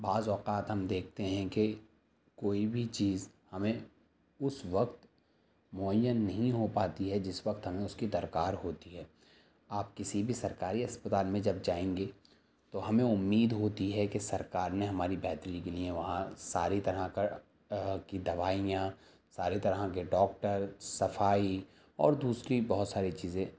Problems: none marked